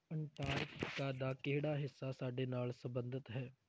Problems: background sounds at intervals, low volume